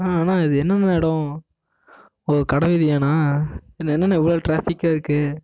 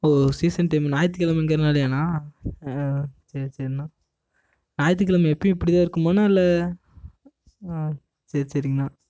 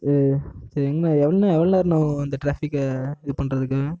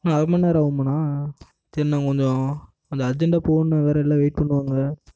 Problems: echo